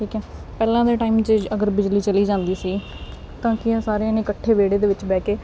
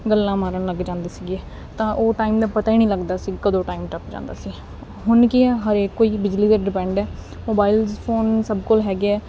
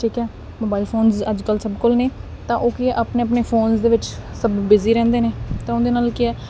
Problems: none marked